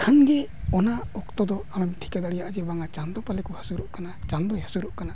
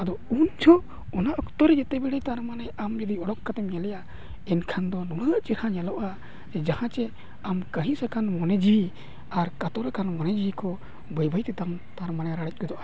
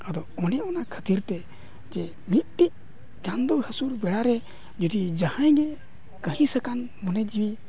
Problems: continuous background conversations